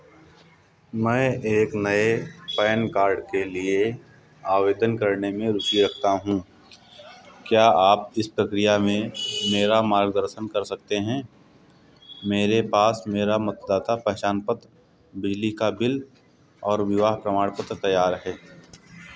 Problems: constant background noise